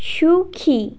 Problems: constant background noise